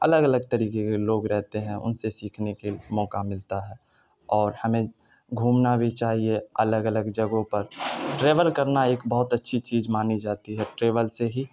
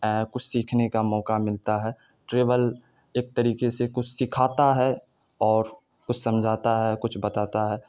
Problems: none marked